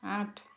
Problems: continuous background conversations